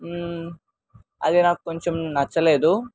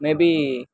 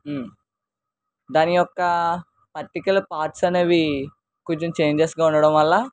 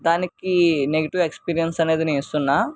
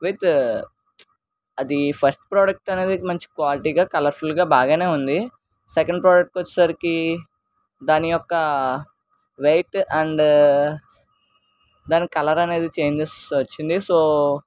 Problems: none marked